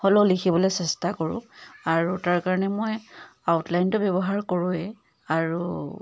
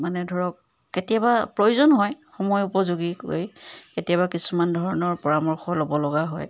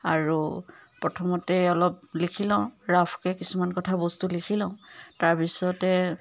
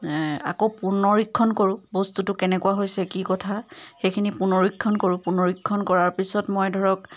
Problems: none marked